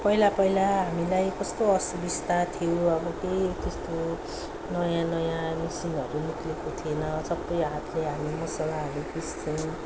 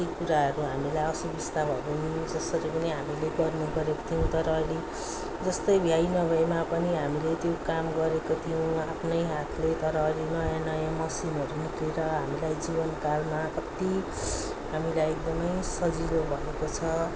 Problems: background sounds at intervals, background conversations at intervals